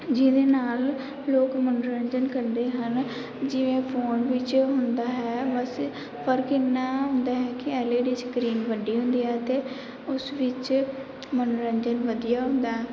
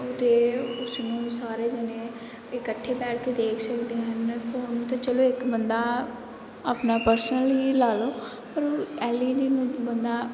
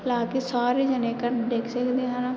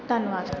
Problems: background sounds at intervals